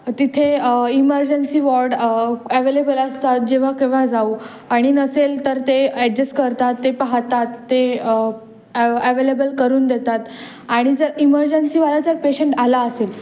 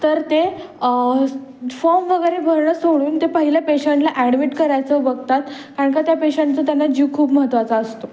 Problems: constant background noise, background conversations at intervals